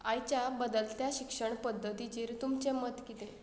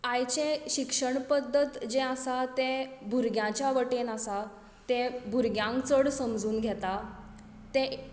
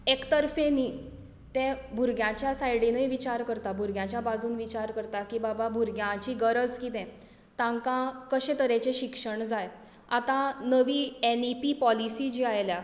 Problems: background sounds at intervals